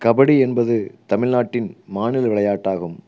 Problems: none marked